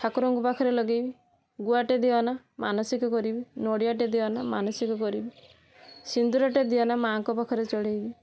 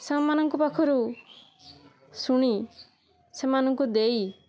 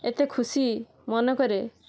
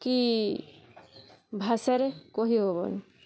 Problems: none marked